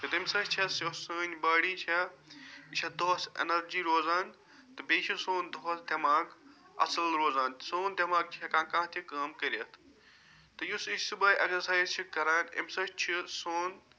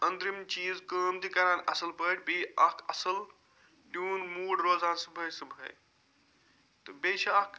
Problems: background sounds at intervals